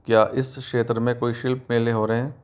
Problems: constant background noise